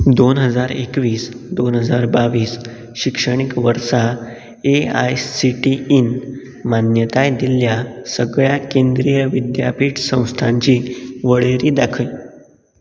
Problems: none marked